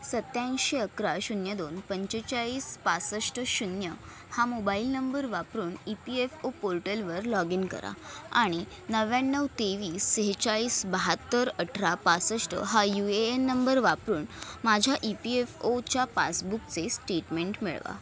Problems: none marked